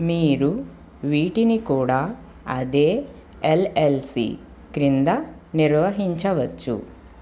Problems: constant background noise